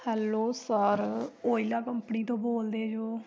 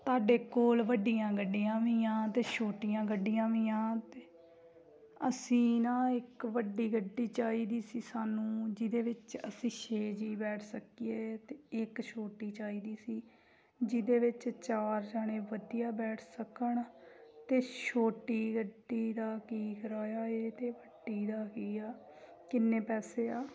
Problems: background sounds at intervals, background conversations at intervals